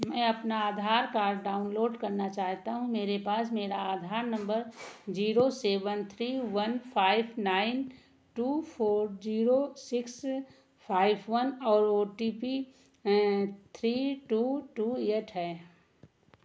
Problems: background sounds at intervals